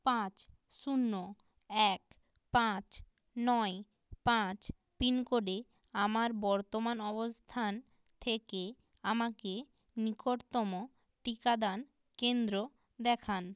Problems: none marked